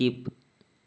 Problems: constant background noise